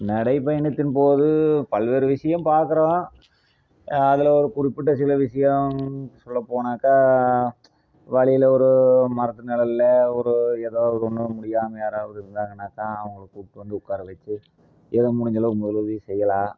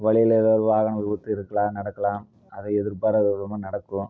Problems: low volume